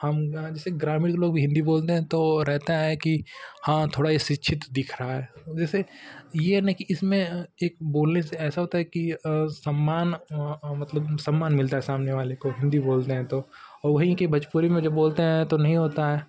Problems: constant background noise